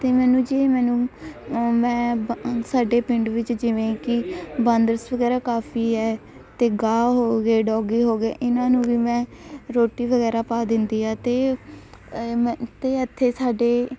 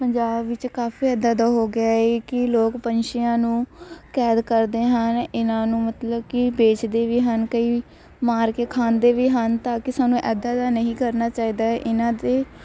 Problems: constant background noise, background conversations at intervals